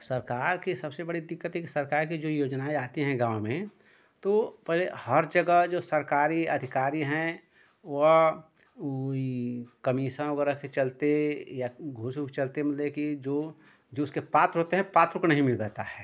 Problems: none marked